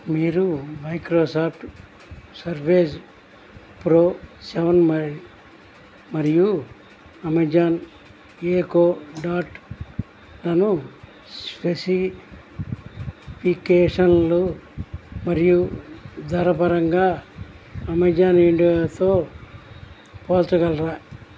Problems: constant background noise